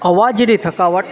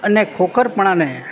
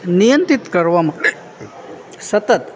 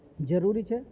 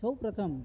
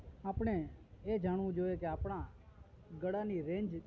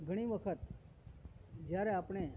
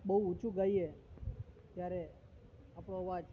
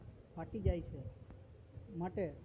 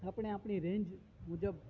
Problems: constant background noise